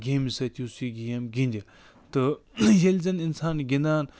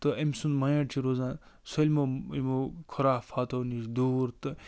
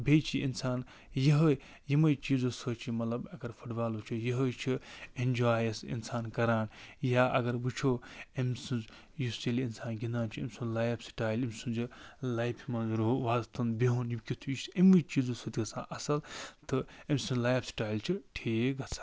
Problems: none marked